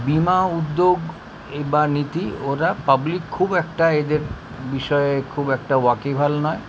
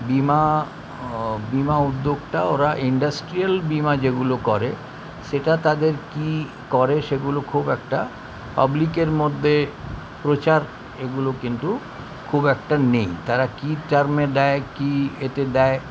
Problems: constant background noise